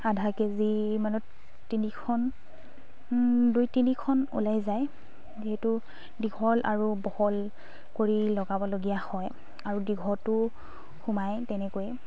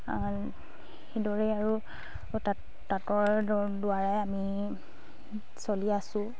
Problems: constant background noise, background conversations at intervals